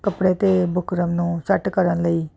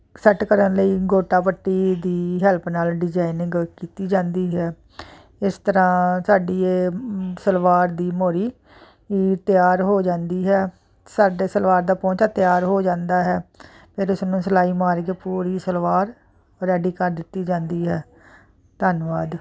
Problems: constant background noise